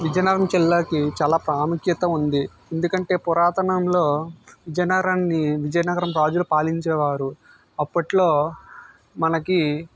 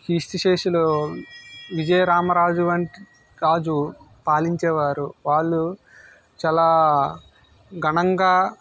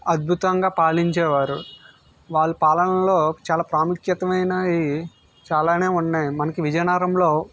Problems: background sounds at intervals